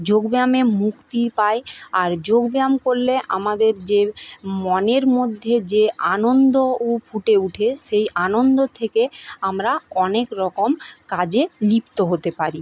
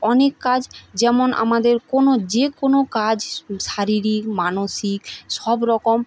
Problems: none marked